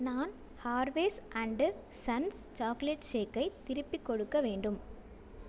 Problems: none marked